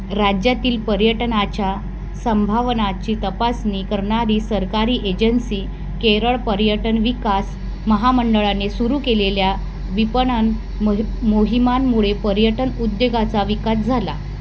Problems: constant background noise